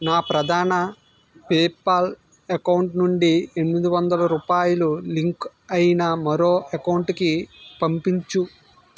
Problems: background sounds at intervals